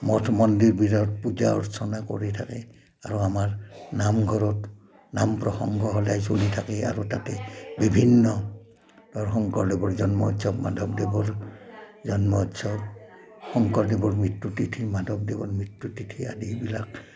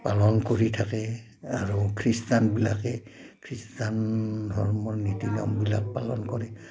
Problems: constant background noise